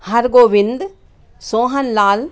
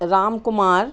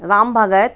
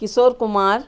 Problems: constant background noise, continuous background conversations